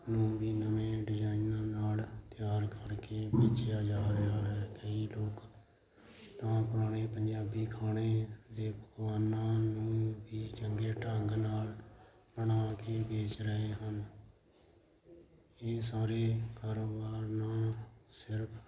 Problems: none marked